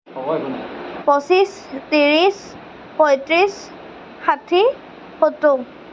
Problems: constant background noise